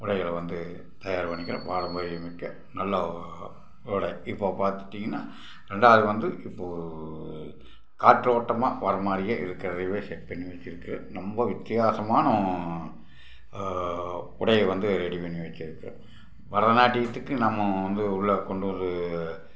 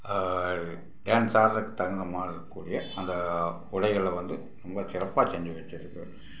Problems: background sounds at intervals